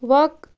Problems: constant background noise